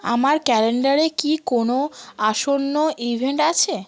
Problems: constant background noise